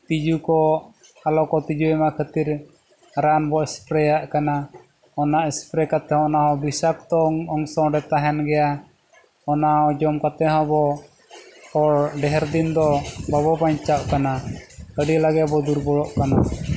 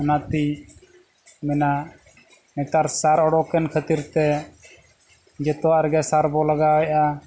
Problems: none marked